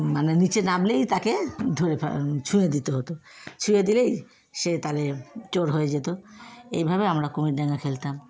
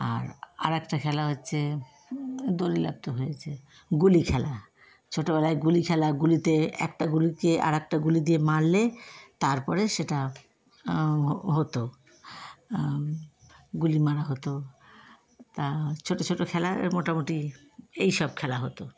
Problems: constant background noise